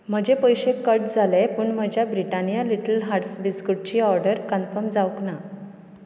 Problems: none marked